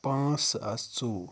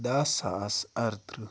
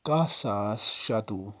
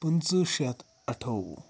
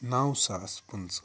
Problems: none marked